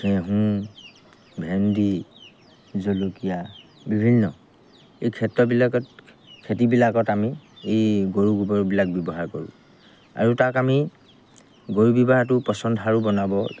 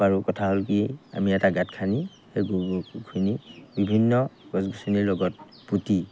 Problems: background sounds at intervals